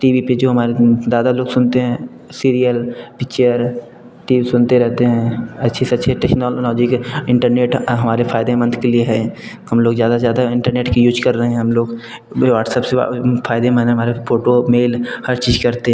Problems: none marked